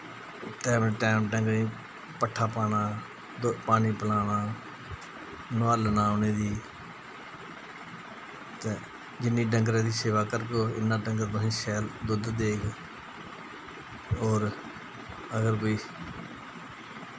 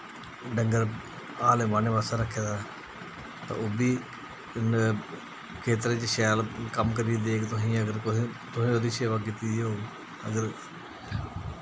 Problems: constant background noise